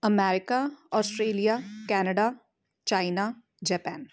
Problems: background sounds at intervals